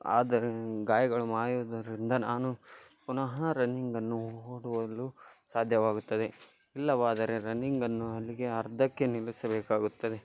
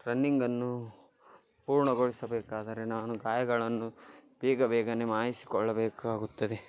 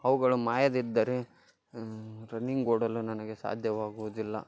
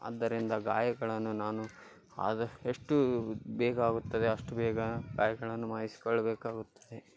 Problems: background sounds at intervals